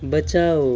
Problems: none marked